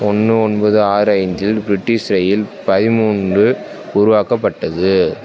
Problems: constant background noise